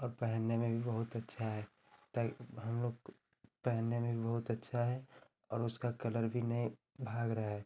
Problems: constant background noise, continuous background conversations